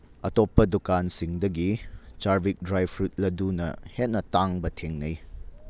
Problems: none marked